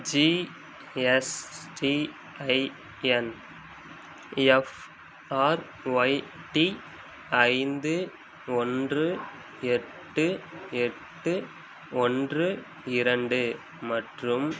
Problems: constant background noise